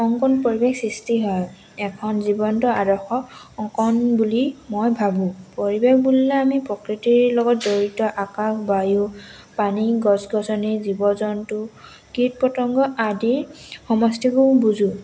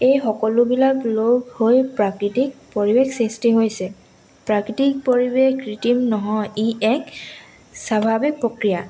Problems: none marked